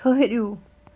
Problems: constant background noise